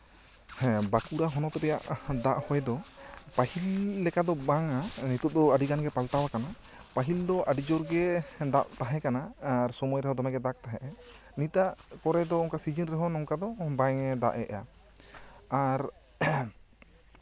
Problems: constant background noise, background conversations at intervals